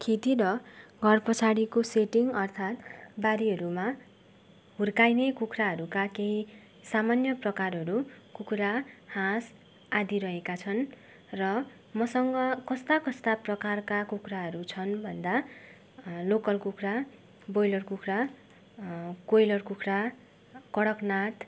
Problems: background sounds at intervals